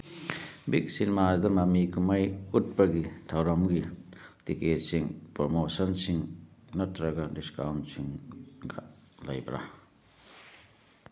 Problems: none marked